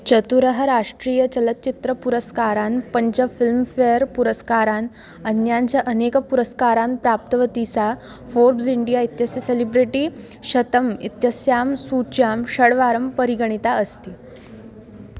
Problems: none marked